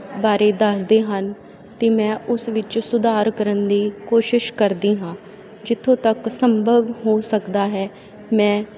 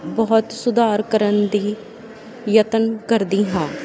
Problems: constant background noise